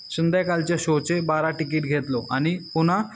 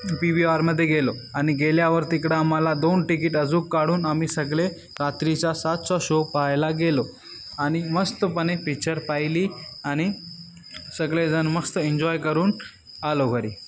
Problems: none marked